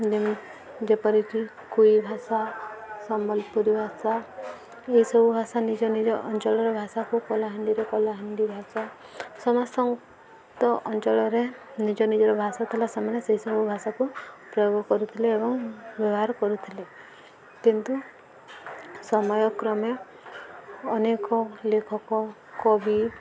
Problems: constant background noise, continuous background conversations